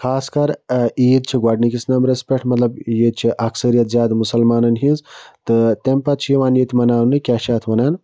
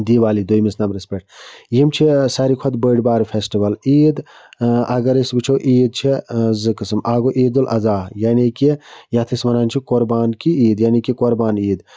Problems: none marked